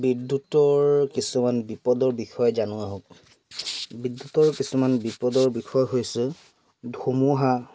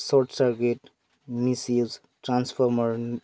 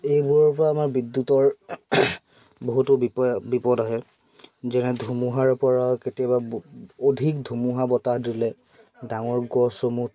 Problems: constant background noise, background conversations at intervals